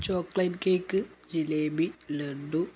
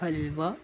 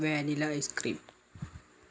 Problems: none marked